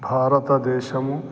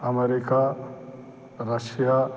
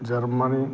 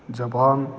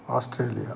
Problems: none marked